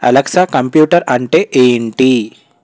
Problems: none marked